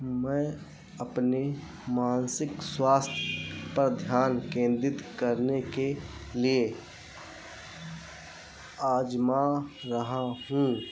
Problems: constant background noise